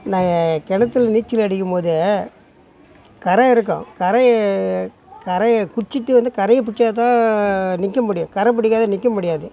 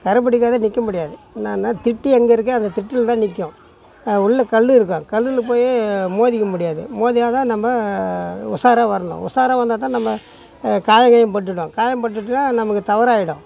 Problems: background sounds at intervals, continuous background conversations